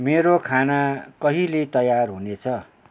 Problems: none marked